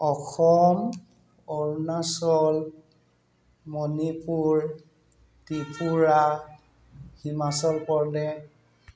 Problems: background sounds at intervals